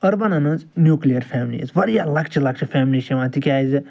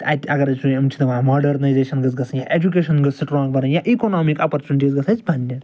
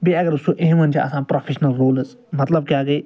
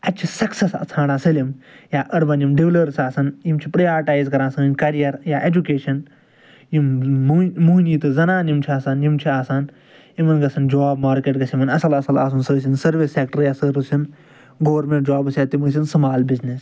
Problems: background sounds at intervals, background conversations at intervals